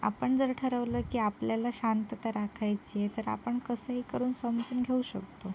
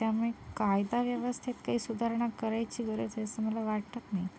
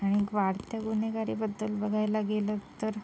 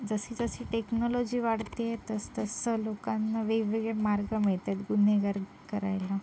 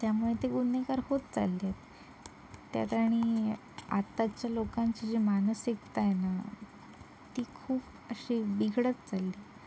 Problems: background sounds at intervals